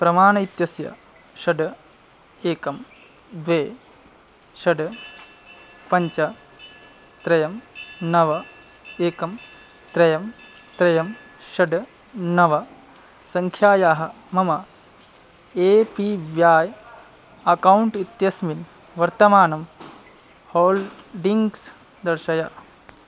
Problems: background sounds at intervals